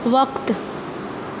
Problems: constant background noise